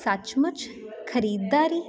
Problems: none marked